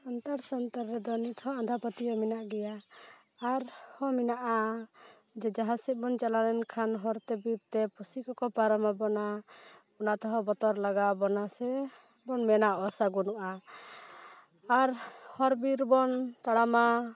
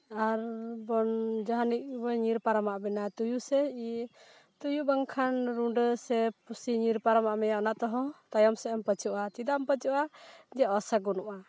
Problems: none marked